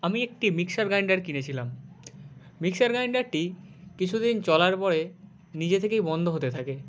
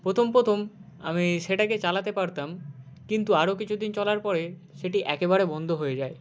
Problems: none marked